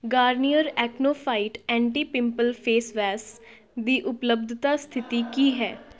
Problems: background conversations at intervals